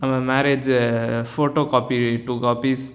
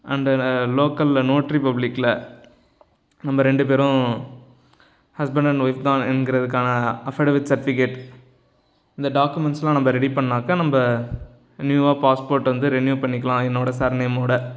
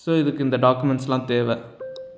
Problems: background sounds at intervals